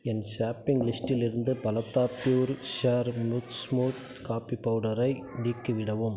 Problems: none marked